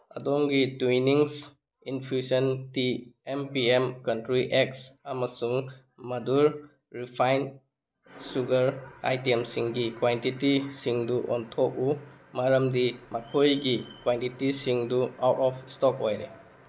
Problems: background sounds at intervals